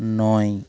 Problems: none marked